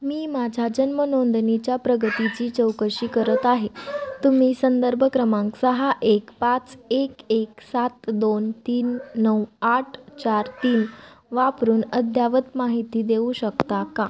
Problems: constant background noise, background conversations at intervals